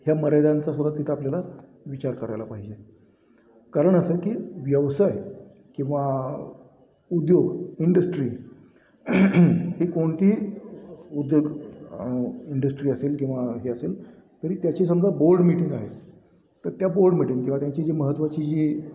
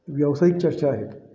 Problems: constant background noise, background conversations at intervals